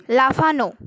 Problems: constant background noise